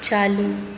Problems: none marked